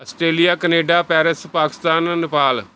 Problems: background sounds at intervals